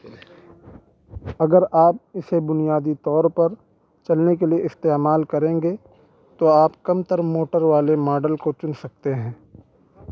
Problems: none marked